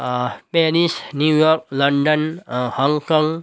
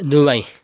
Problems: background sounds at intervals